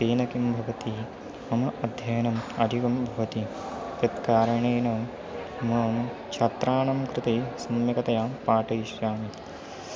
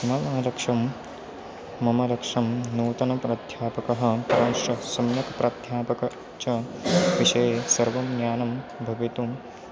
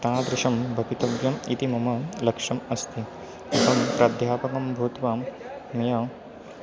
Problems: constant background noise